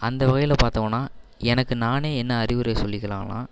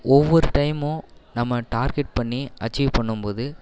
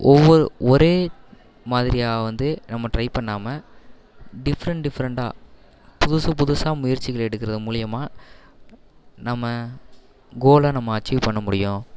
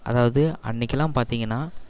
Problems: none marked